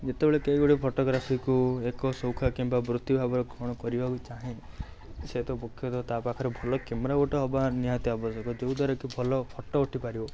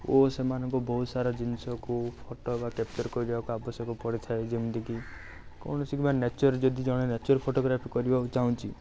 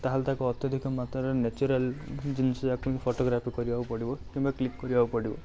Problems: none marked